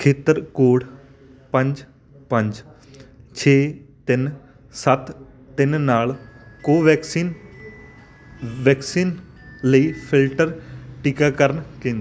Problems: constant background noise, background conversations at intervals